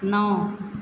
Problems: none marked